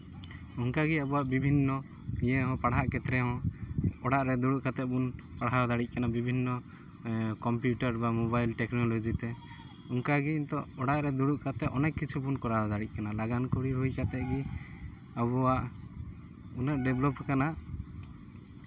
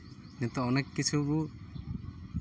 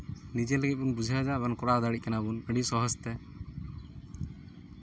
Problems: none marked